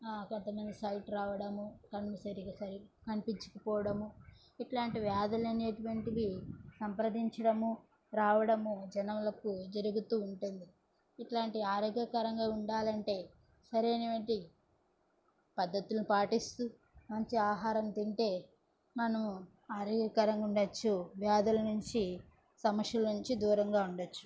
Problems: background sounds at intervals, background conversations at intervals